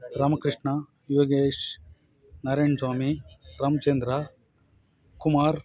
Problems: background conversations at intervals